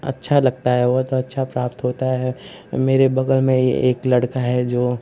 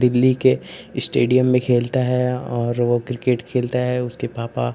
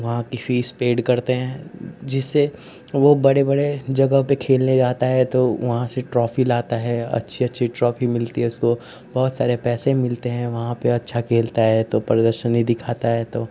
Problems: constant background noise